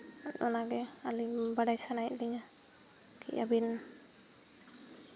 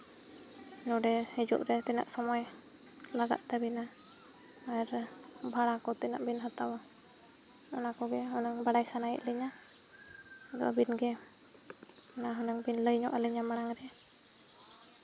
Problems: constant background noise